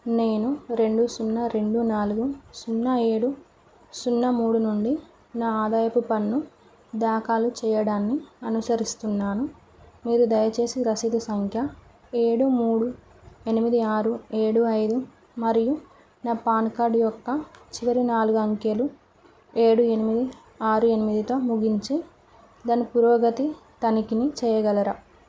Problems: none marked